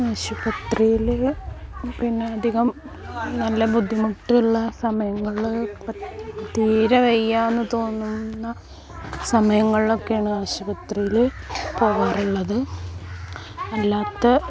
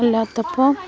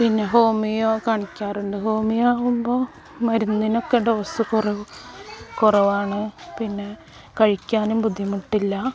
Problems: constant background noise